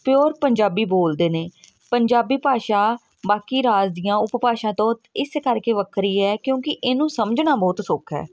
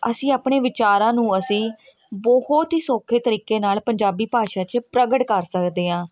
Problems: constant background noise